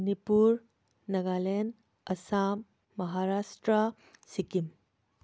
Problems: none marked